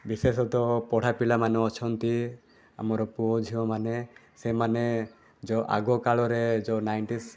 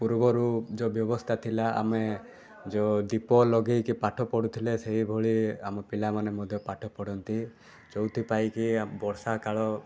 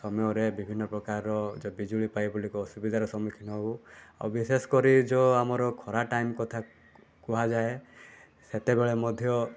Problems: constant background noise, continuous background conversations